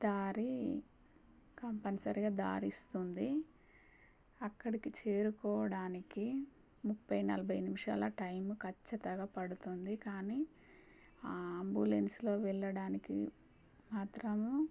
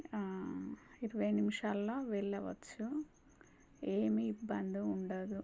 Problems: low volume